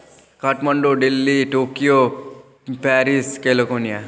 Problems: none marked